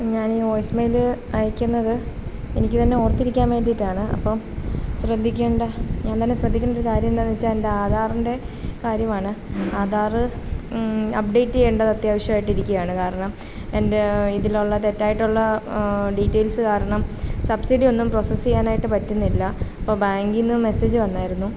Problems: constant background noise